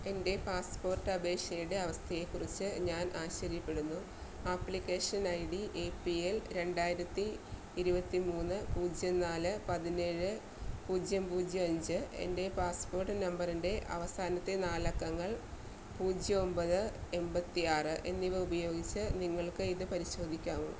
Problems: constant background noise, low volume